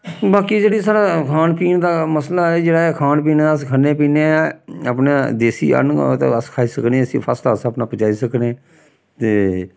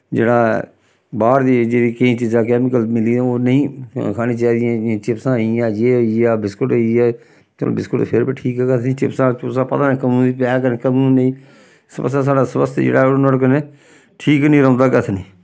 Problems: none marked